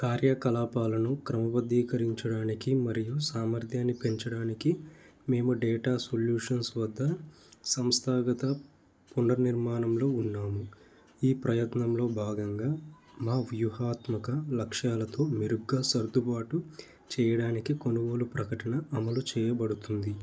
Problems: constant background noise